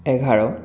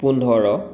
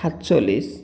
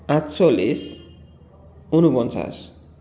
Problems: background sounds at intervals